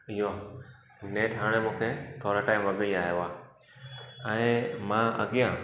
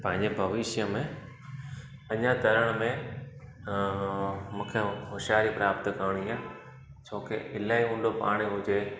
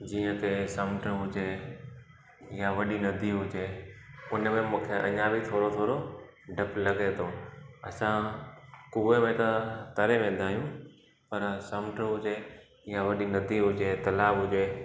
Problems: constant background noise